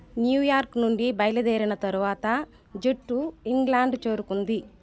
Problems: constant background noise, background conversations at intervals